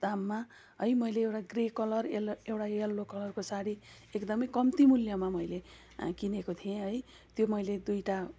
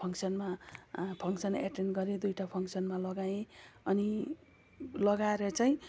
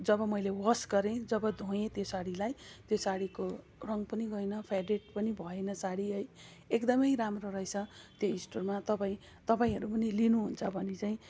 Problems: none marked